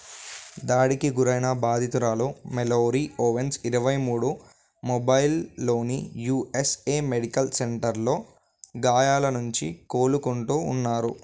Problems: background sounds at intervals